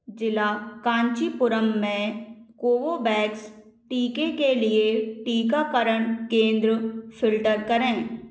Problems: none marked